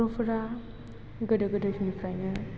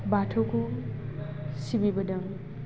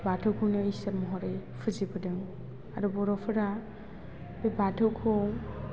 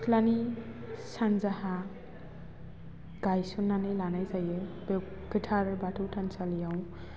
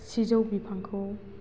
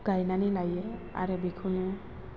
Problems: constant background noise